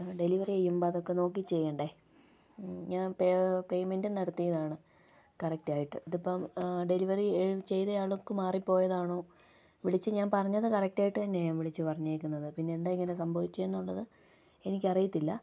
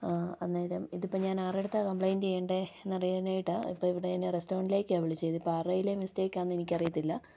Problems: low volume